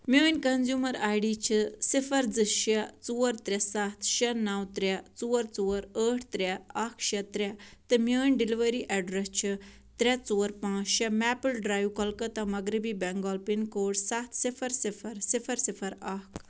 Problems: none marked